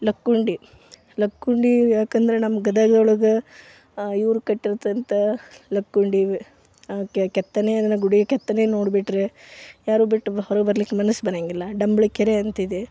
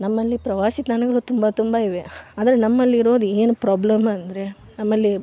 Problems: none marked